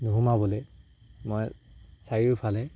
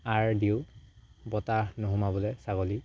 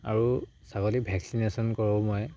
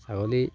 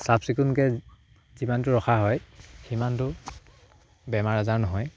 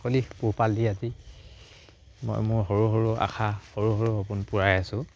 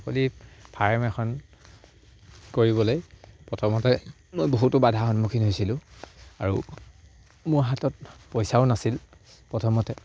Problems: background sounds at intervals